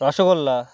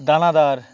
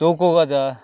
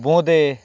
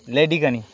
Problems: constant background noise